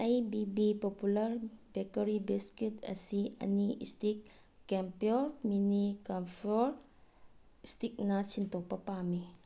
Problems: none marked